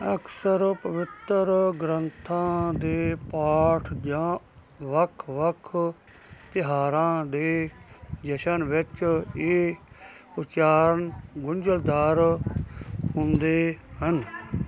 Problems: continuous background conversations